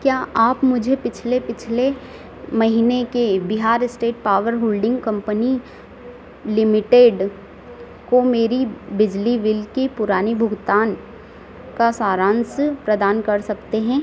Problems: constant background noise, background conversations at intervals